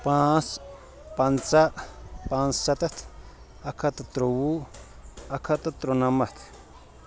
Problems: constant background noise